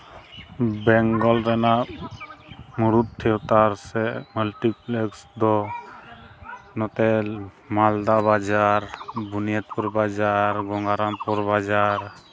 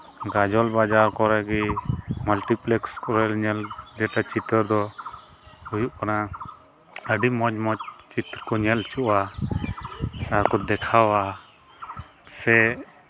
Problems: constant background noise, background conversations at intervals